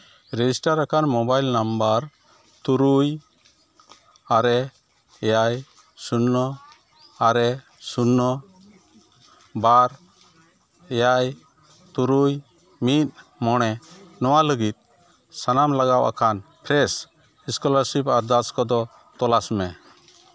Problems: constant background noise, continuous background conversations